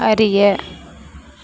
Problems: none marked